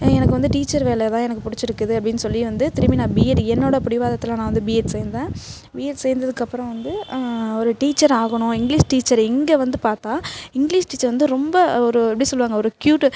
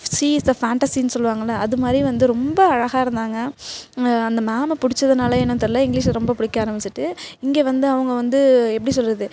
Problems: background sounds at intervals